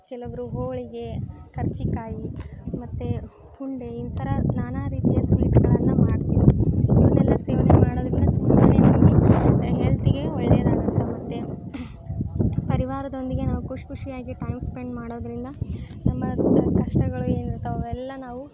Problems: none marked